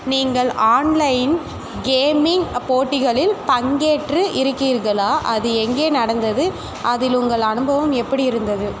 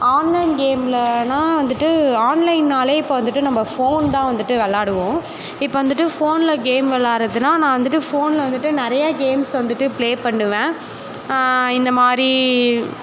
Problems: constant background noise, background conversations at intervals